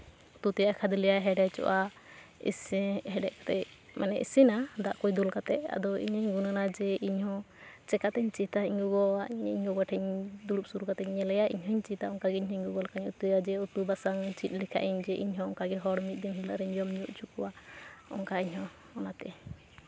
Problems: none marked